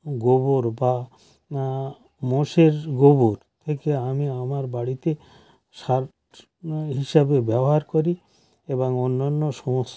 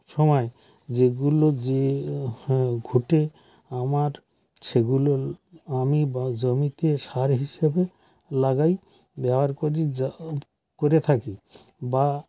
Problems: none marked